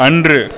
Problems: constant background noise